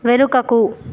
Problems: constant background noise